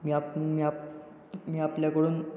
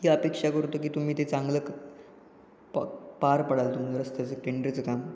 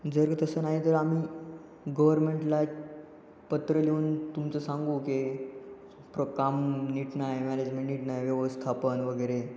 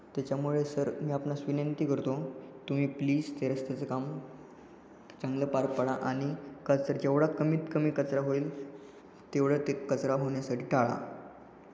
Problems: background sounds at intervals